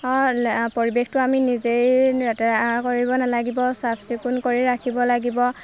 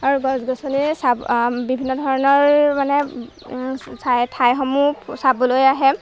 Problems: background sounds at intervals